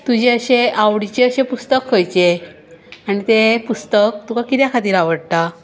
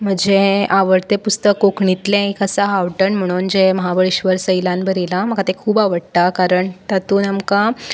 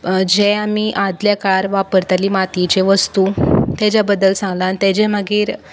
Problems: background sounds at intervals